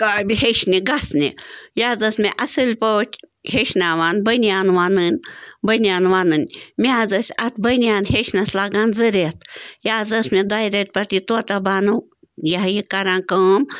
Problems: none marked